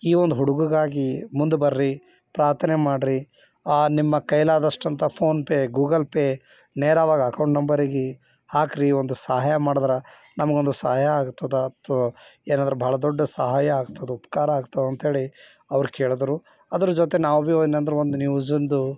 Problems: none marked